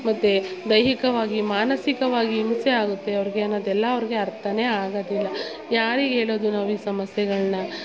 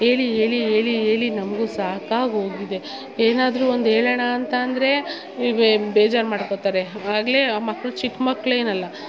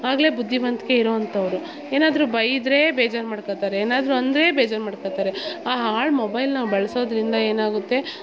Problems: background sounds at intervals, background conversations at intervals